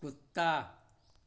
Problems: constant background noise